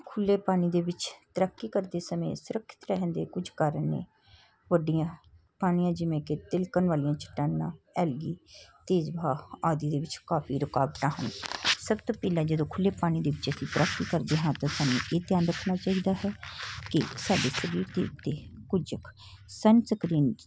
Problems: background sounds at intervals